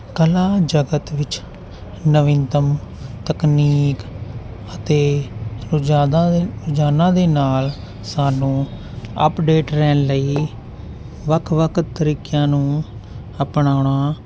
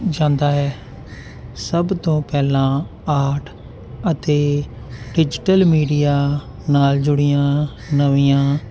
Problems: none marked